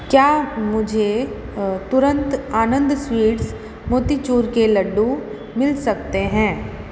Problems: constant background noise, echo